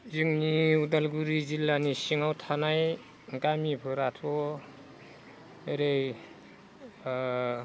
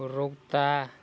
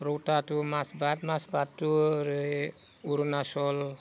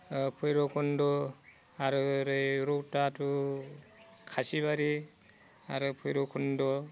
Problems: low volume